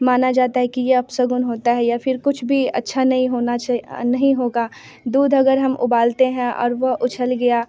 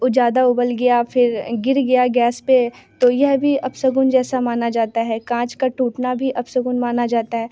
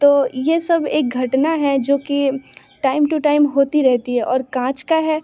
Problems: constant background noise